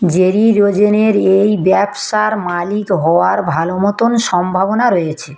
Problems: echo